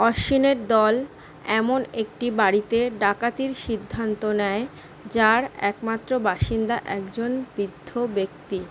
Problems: constant background noise